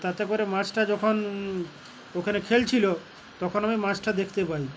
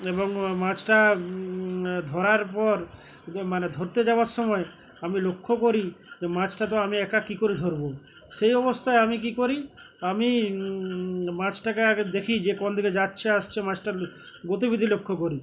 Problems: constant background noise